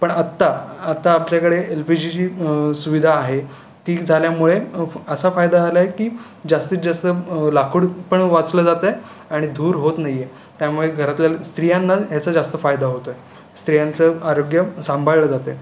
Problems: none marked